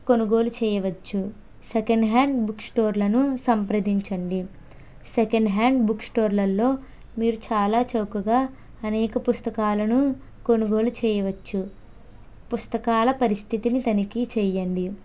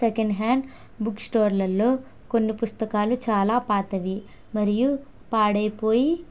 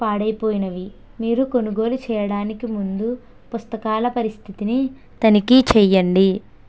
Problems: none marked